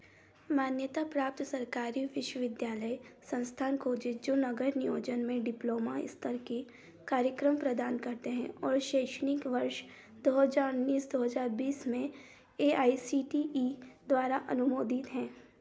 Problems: background sounds at intervals